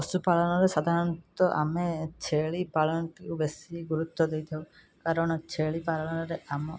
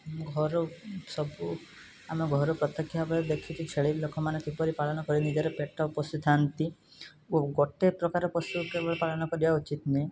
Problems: background sounds at intervals